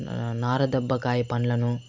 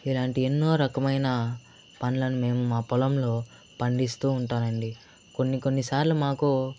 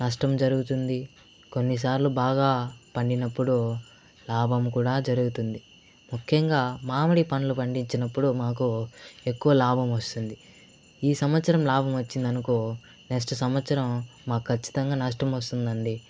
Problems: none marked